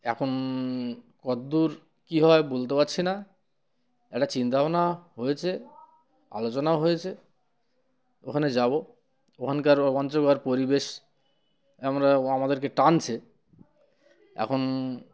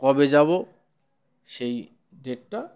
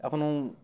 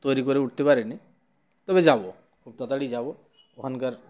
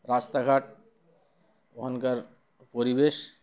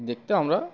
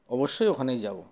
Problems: none marked